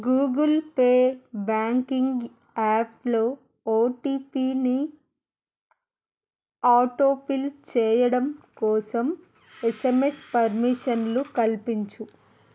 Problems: background sounds at intervals